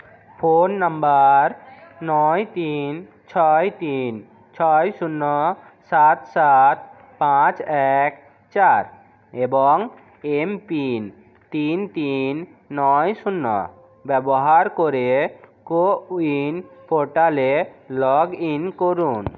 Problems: constant background noise, continuous background conversations